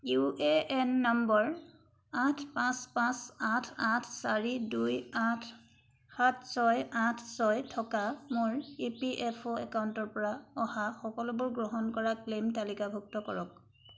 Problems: background sounds at intervals